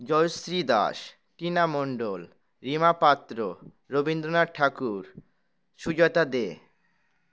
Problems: none marked